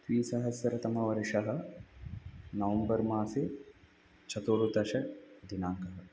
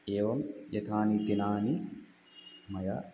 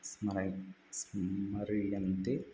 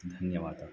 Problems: none marked